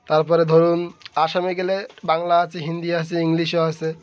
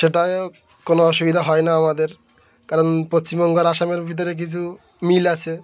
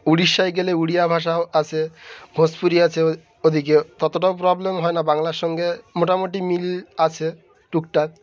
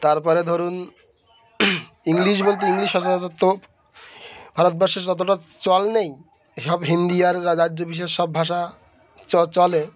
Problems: constant background noise